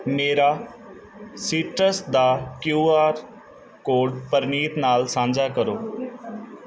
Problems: background conversations at intervals